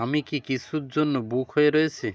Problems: none marked